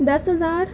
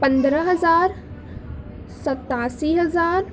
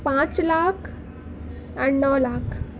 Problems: constant background noise